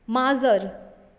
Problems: constant background noise